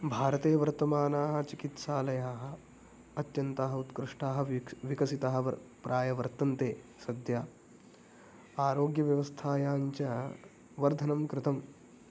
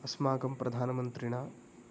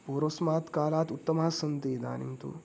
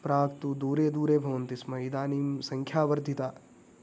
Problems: none marked